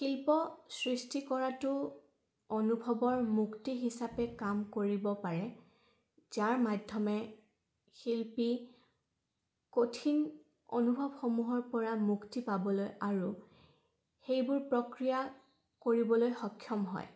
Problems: background sounds at intervals